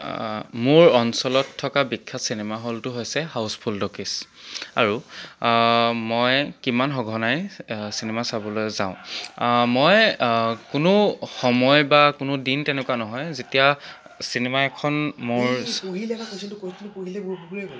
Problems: background conversations at intervals